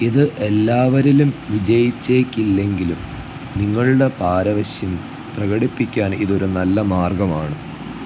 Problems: low volume